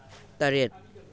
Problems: background sounds at intervals